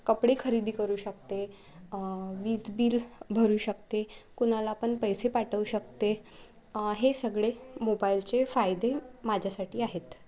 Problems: constant background noise